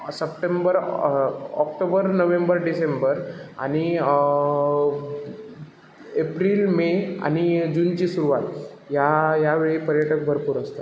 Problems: background sounds at intervals